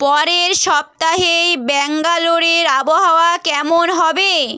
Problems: background sounds at intervals